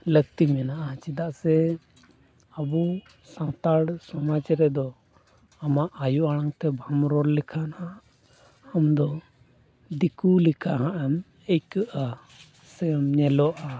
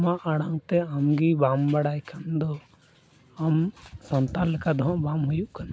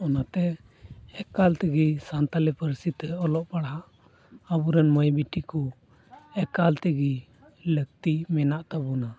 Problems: none marked